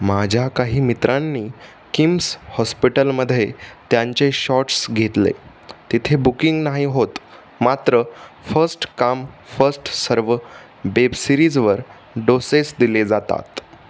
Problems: constant background noise